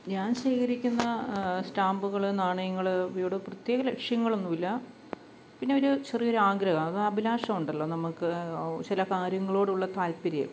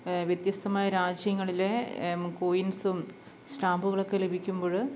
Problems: background sounds at intervals